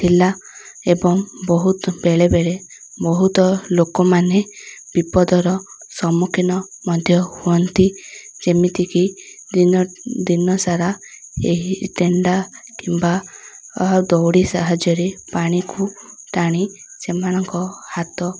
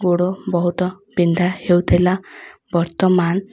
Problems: none marked